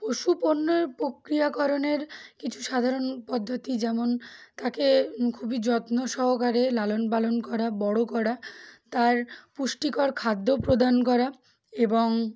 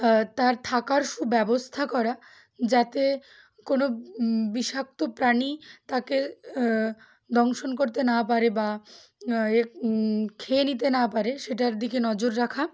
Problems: background sounds at intervals, background conversations at intervals